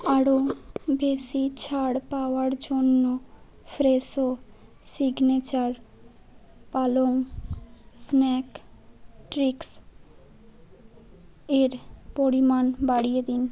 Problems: none marked